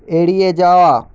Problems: constant background noise